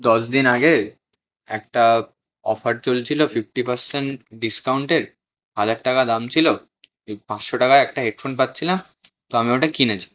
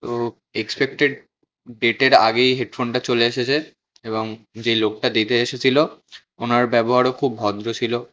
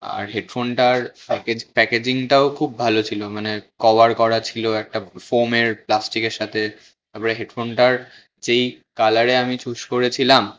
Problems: none marked